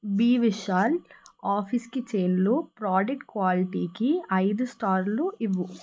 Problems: none marked